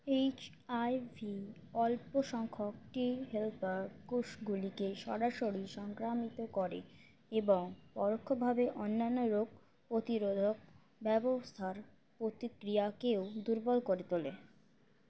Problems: constant background noise